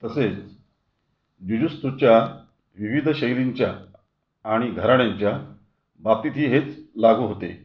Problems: background sounds at intervals